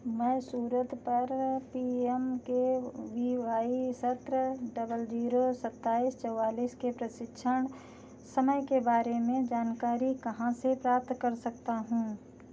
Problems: none marked